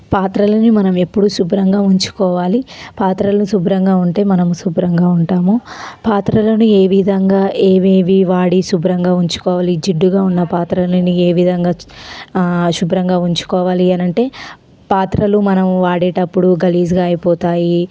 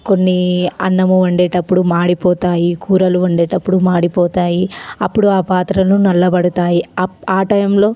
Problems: constant background noise, background conversations at intervals